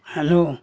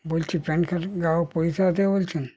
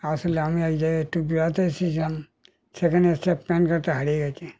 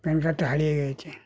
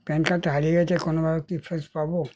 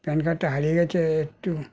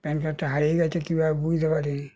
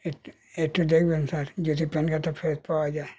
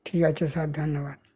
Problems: none marked